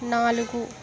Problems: continuous background conversations